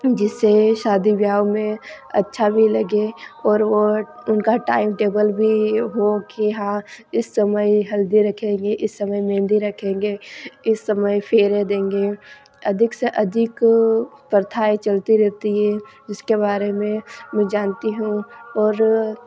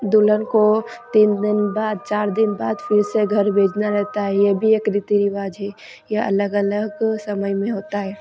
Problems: constant background noise